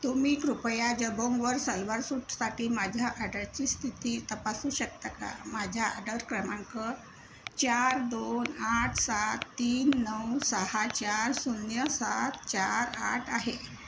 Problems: constant background noise